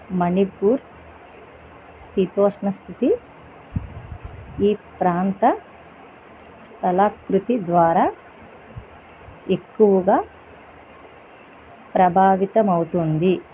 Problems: constant background noise